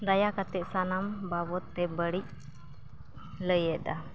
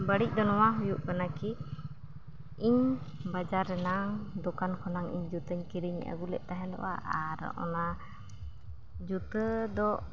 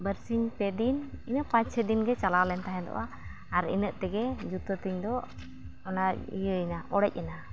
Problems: none marked